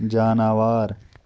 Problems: background sounds at intervals